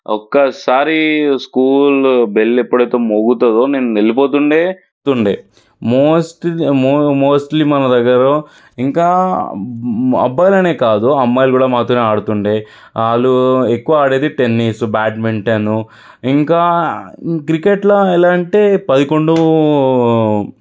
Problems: background sounds at intervals